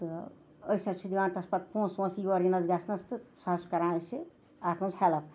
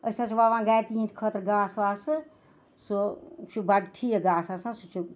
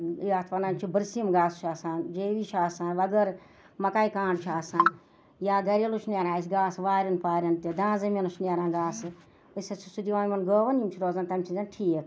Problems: none marked